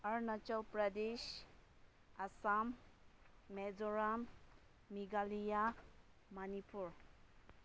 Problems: none marked